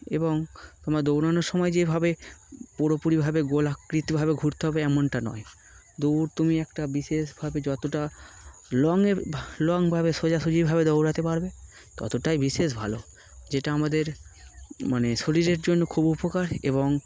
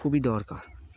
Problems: background sounds at intervals